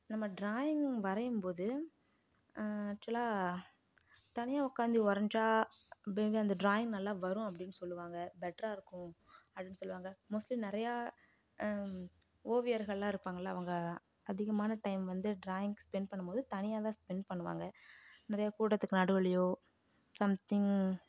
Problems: low volume